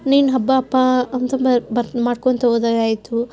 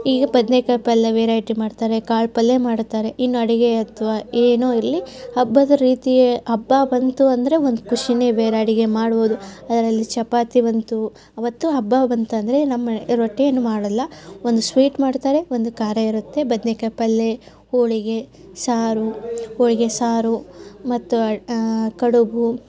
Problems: background sounds at intervals, background conversations at intervals